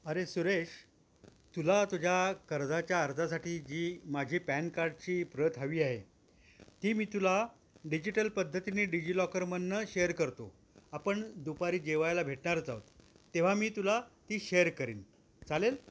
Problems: constant background noise